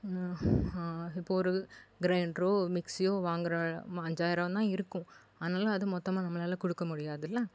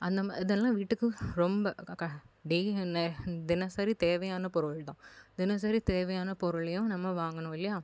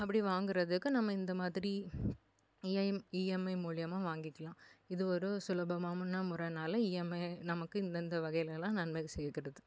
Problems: background sounds at intervals